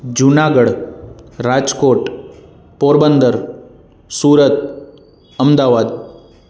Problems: constant background noise, echo